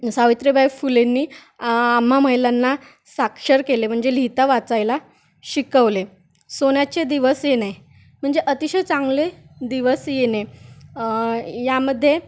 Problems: background sounds at intervals